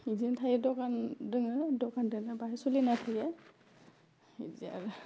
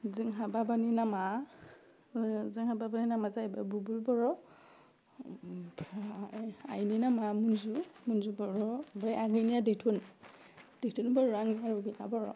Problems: constant background noise